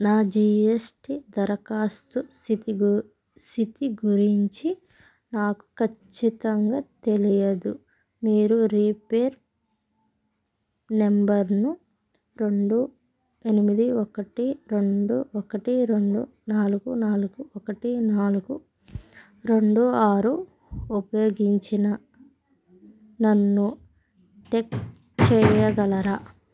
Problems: background sounds at intervals